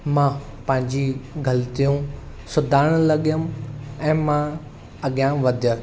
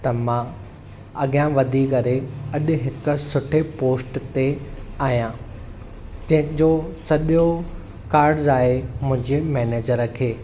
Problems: constant background noise